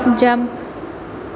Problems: none marked